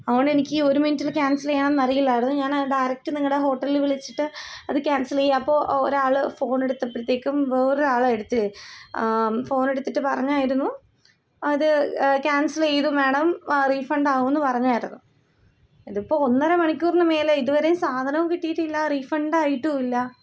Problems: none marked